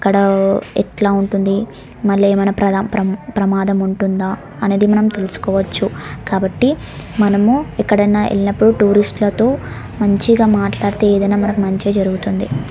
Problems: background sounds at intervals